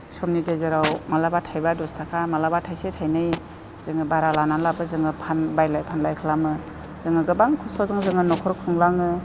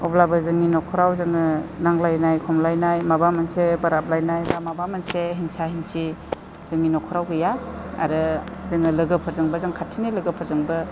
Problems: constant background noise